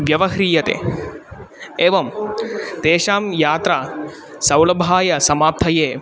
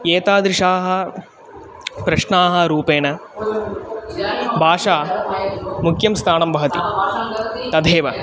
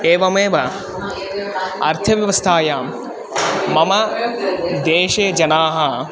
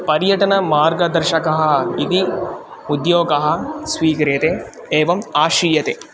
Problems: constant background noise, continuous background conversations